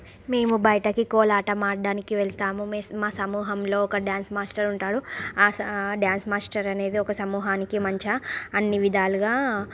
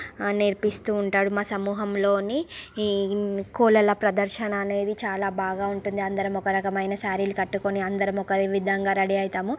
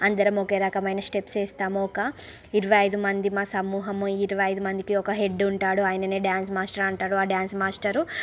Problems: background sounds at intervals